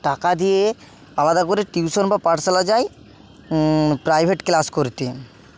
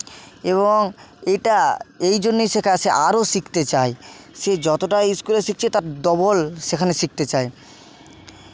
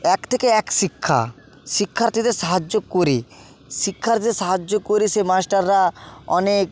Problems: constant background noise, continuous background conversations